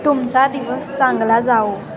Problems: constant background noise, continuous background conversations